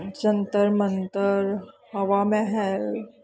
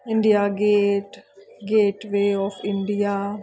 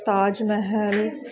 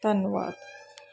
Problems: continuous background conversations